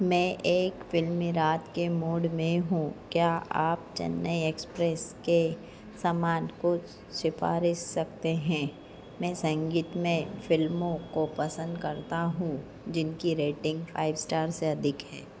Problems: none marked